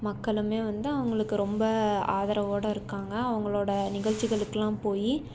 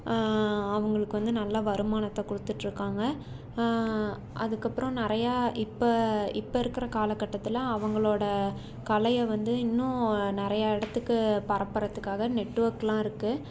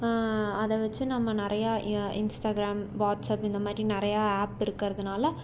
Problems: none marked